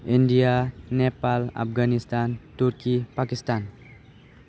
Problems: none marked